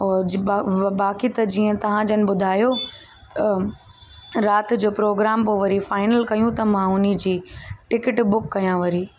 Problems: constant background noise